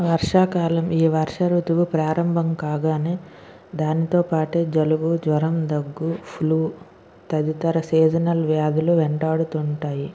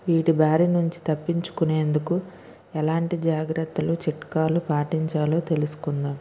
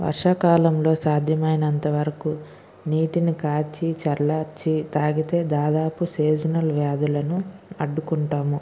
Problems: none marked